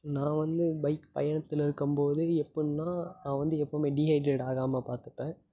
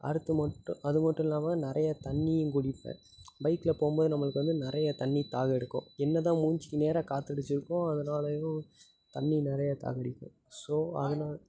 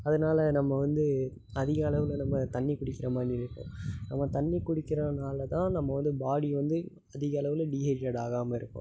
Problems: constant background noise